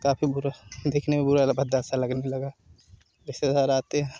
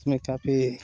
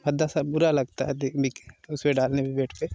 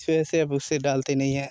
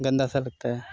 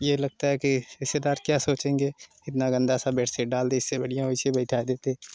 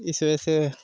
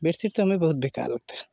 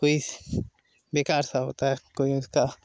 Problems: constant background noise